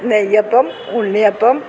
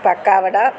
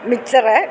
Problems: constant background noise